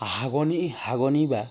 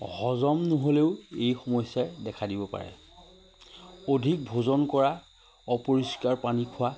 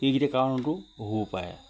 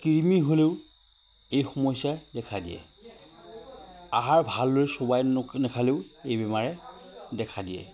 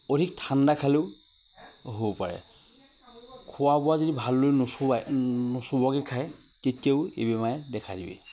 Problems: none marked